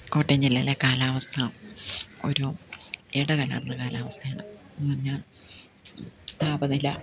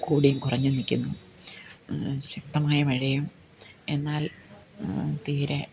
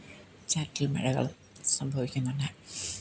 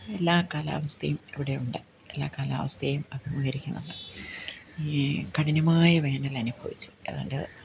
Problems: none marked